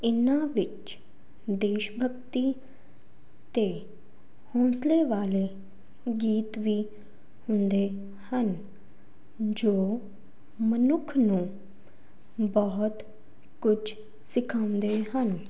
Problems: constant background noise